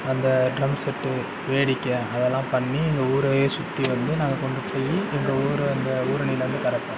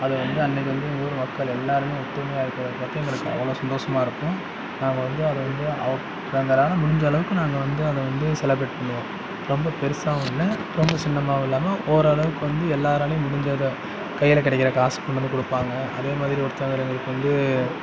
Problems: background conversations at intervals